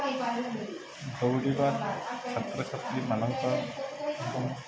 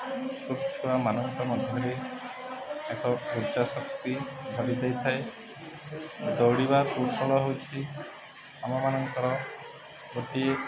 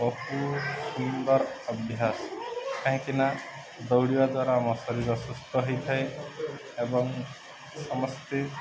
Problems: constant background noise, continuous background conversations